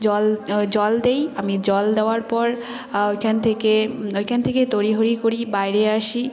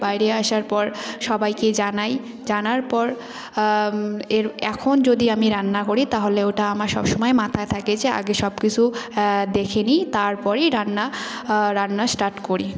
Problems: constant background noise, continuous background conversations